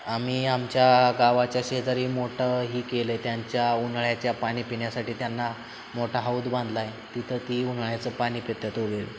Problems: constant background noise